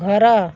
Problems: none marked